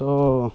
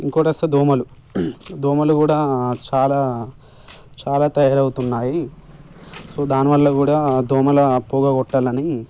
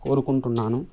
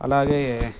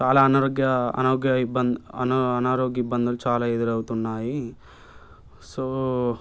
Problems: background sounds at intervals